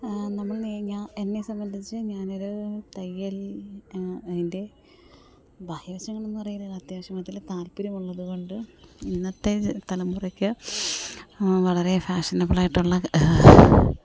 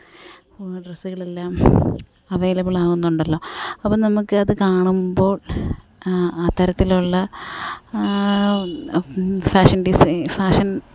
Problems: background sounds at intervals, low volume